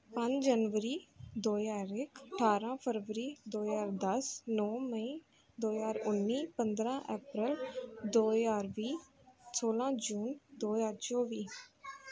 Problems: background conversations at intervals